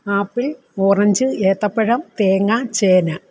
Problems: constant background noise